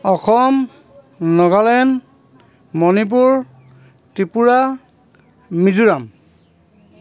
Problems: none marked